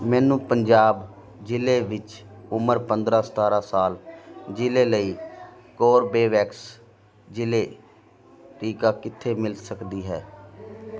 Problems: continuous background conversations